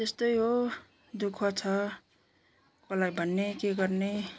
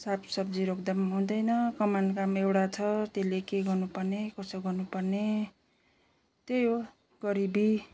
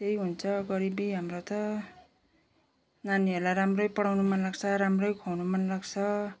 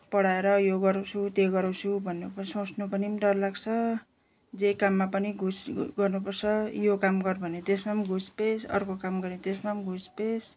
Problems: none marked